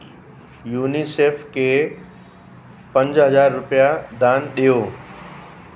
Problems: constant background noise, echo